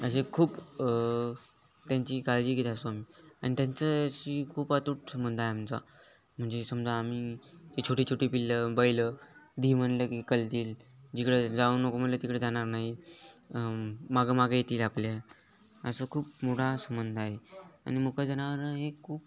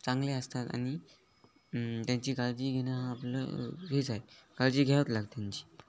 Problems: none marked